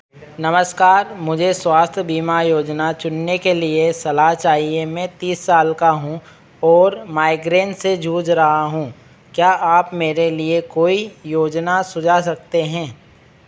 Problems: none marked